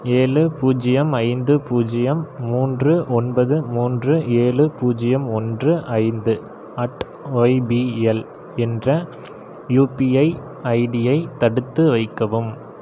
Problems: none marked